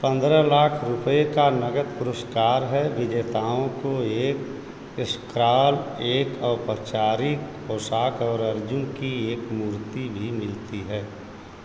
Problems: constant background noise